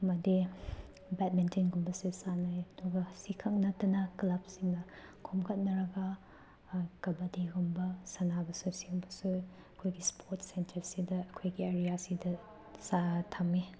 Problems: background sounds at intervals